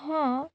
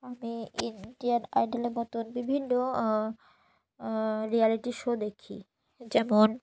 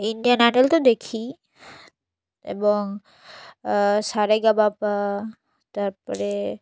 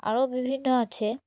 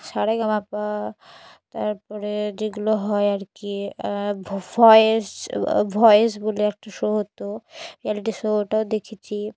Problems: none marked